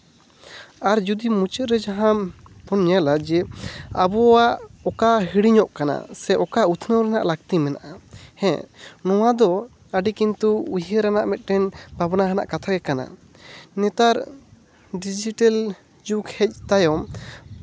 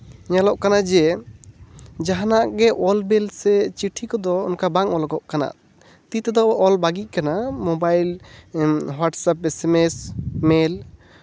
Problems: none marked